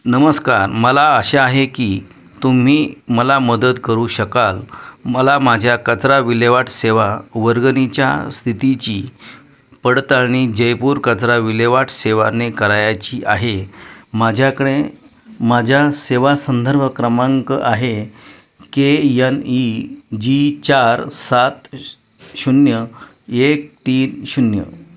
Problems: constant background noise, echo